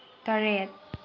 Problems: none marked